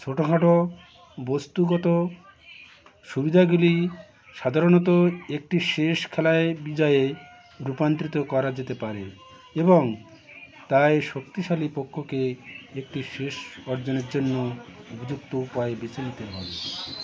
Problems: constant background noise, continuous background conversations